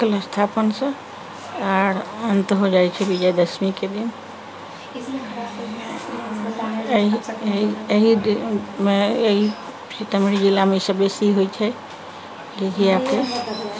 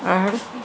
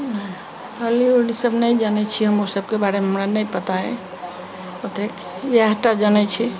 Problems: background sounds at intervals, background conversations at intervals